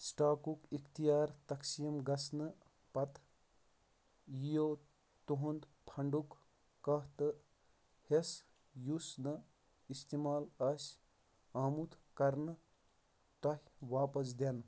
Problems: background sounds at intervals, low volume